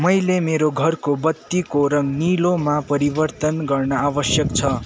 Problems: constant background noise